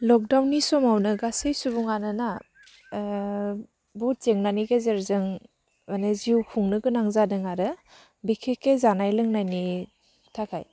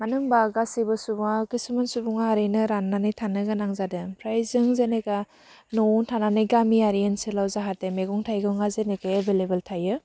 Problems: none marked